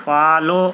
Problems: none marked